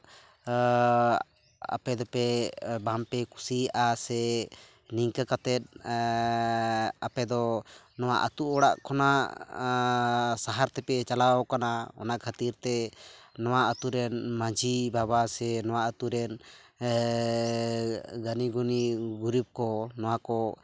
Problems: none marked